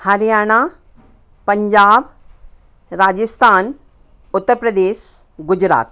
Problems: constant background noise, background conversations at intervals